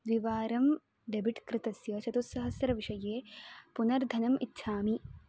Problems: low volume